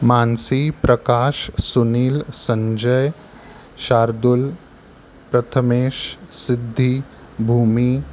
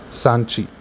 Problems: none marked